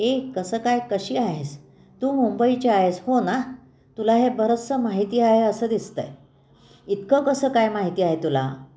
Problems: none marked